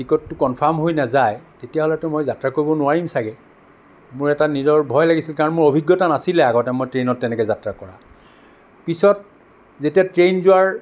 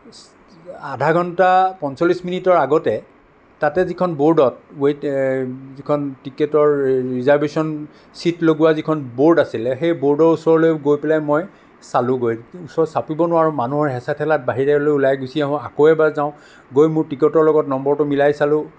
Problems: none marked